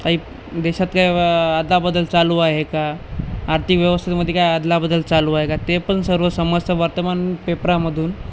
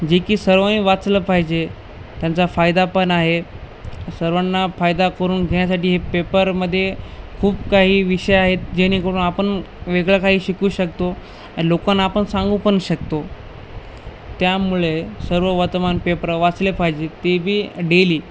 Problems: constant background noise